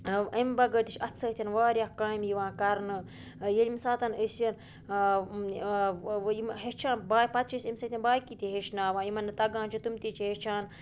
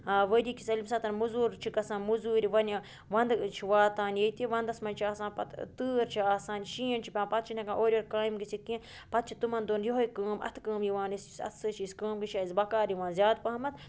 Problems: constant background noise